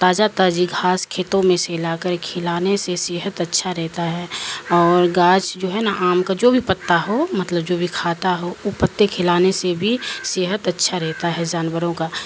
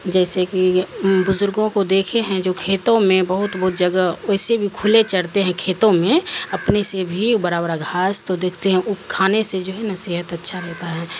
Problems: constant background noise